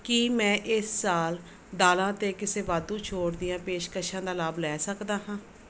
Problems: background sounds at intervals